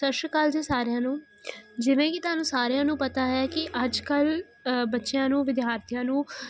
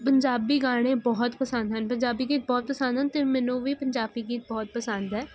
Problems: none marked